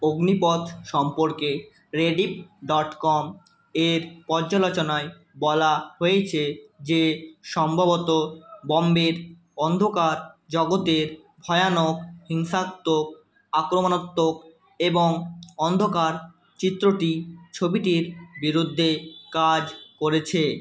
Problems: none marked